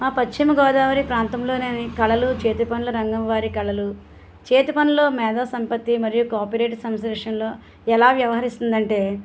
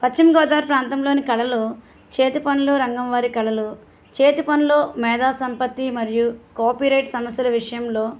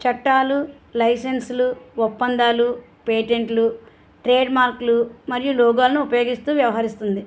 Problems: none marked